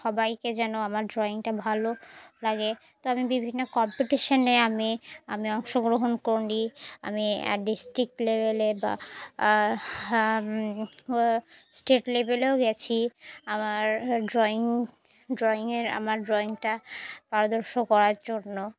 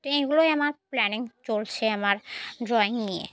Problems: none marked